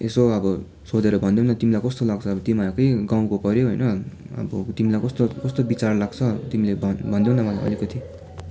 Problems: continuous background conversations